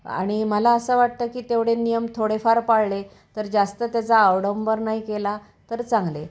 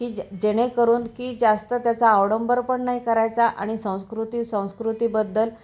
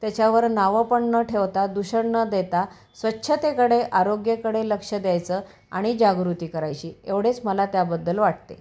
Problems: background sounds at intervals